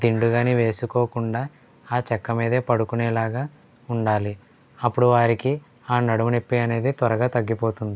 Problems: low volume